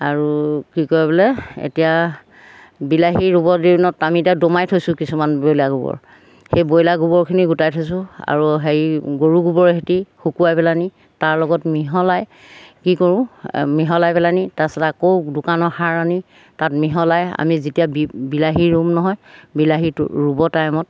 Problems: background sounds at intervals